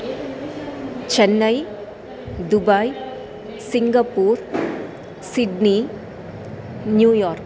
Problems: constant background noise